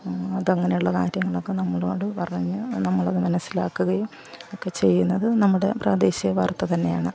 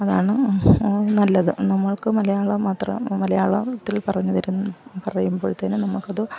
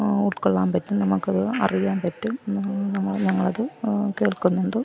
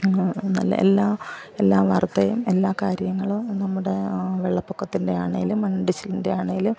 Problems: background sounds at intervals, background conversations at intervals, low volume